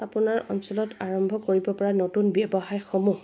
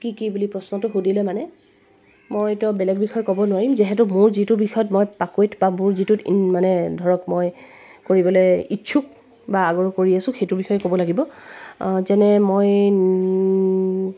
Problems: none marked